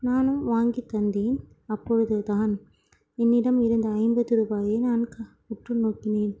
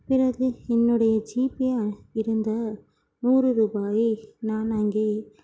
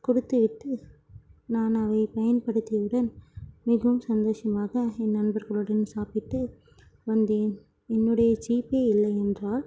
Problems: none marked